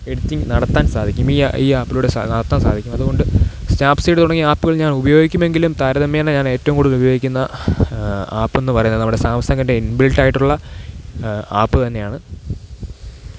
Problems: constant background noise